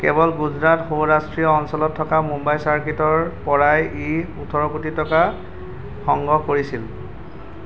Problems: constant background noise